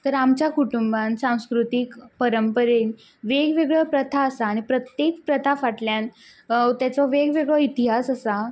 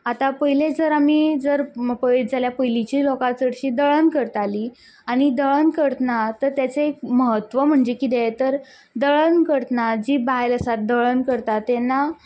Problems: background sounds at intervals